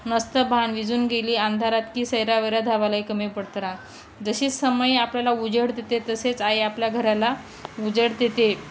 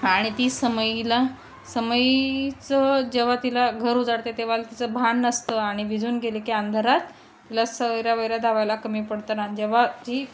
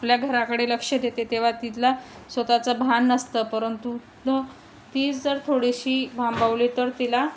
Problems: none marked